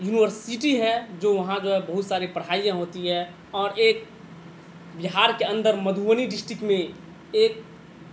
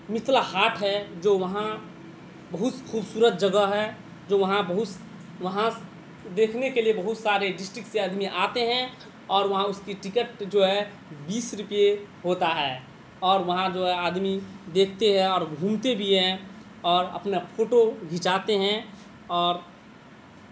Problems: constant background noise